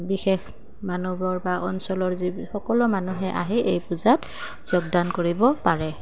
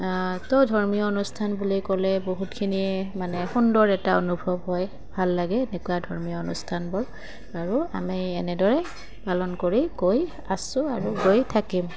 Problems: background sounds at intervals